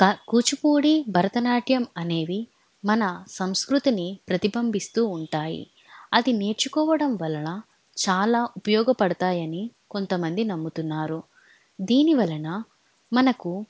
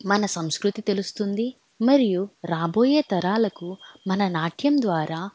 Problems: none marked